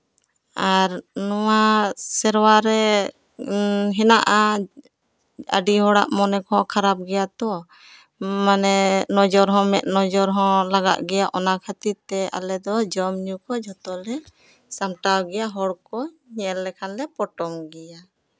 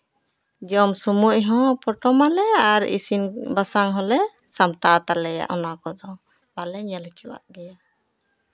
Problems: none marked